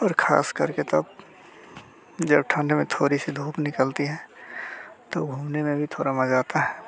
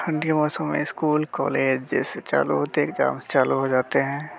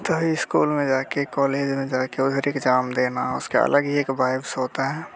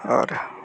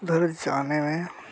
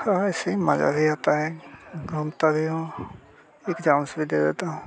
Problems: constant background noise, background conversations at intervals, low volume